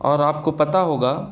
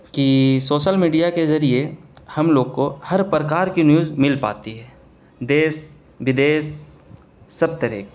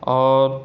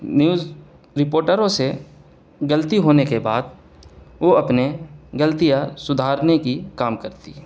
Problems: none marked